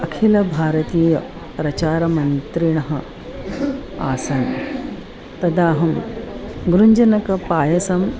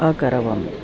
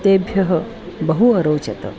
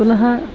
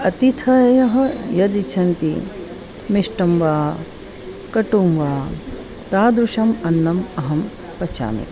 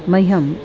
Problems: constant background noise, continuous background conversations